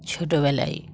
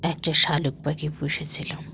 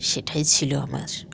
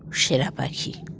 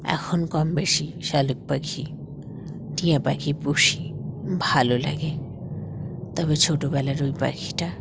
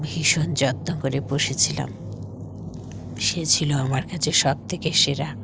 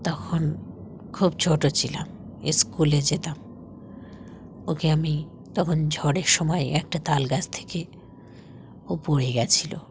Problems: none marked